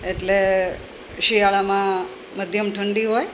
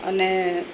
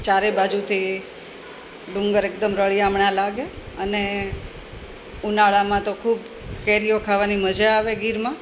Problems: none marked